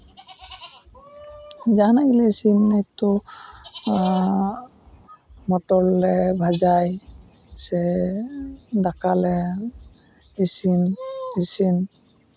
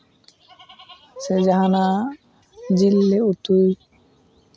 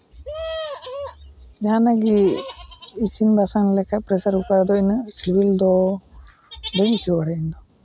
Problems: none marked